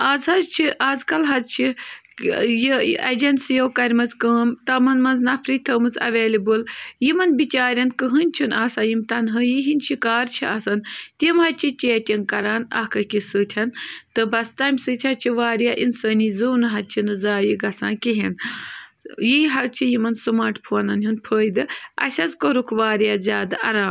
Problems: none marked